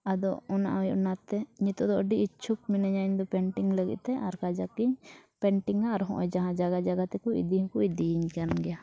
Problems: background sounds at intervals